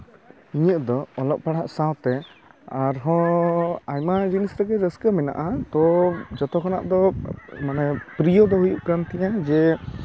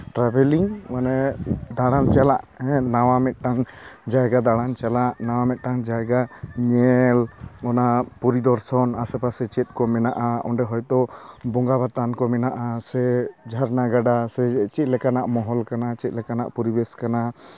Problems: constant background noise, continuous background conversations